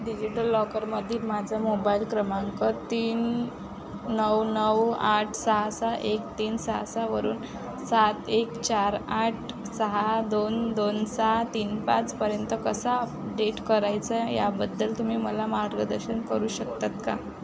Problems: none marked